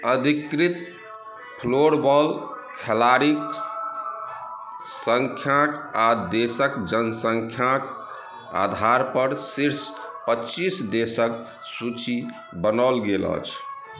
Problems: background sounds at intervals